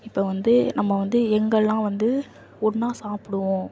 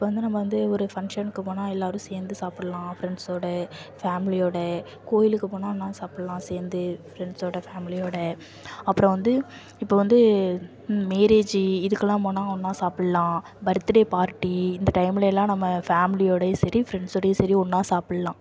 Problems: constant background noise